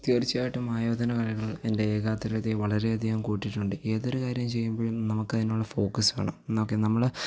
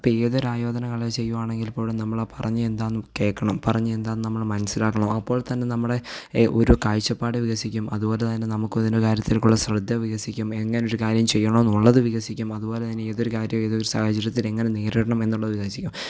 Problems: none marked